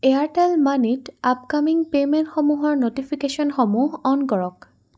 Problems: none marked